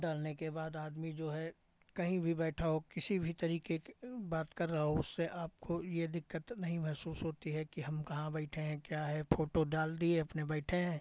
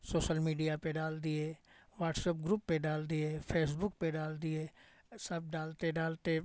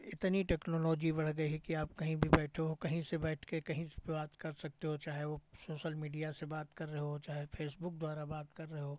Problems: none marked